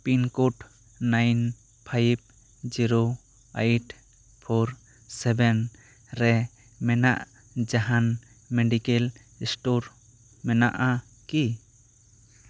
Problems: none marked